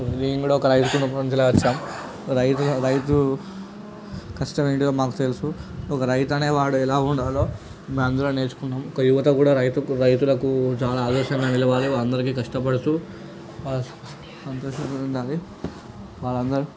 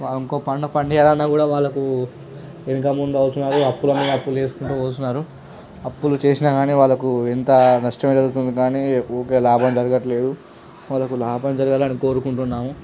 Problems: constant background noise, background conversations at intervals